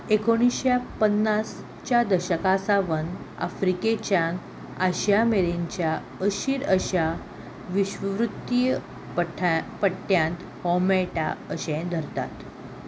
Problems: none marked